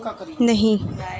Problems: background sounds at intervals